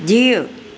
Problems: none marked